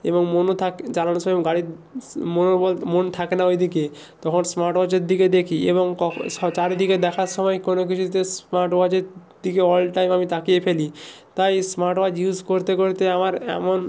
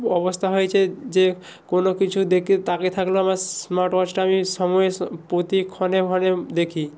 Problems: none marked